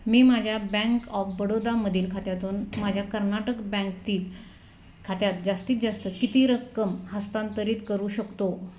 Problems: constant background noise